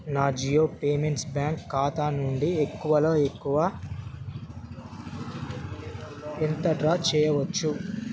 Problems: none marked